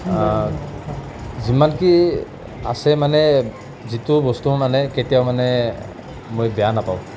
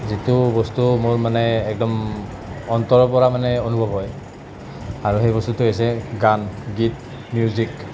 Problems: none marked